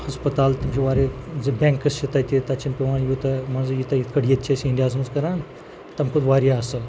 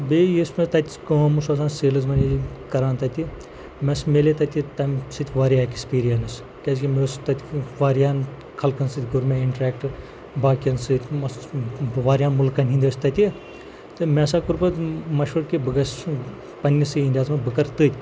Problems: constant background noise, low volume